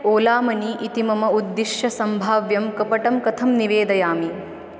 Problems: none marked